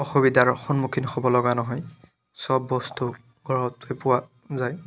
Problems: constant background noise